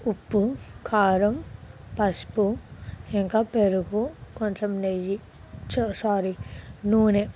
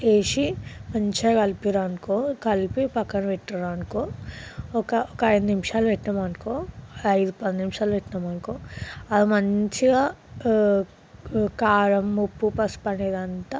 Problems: background sounds at intervals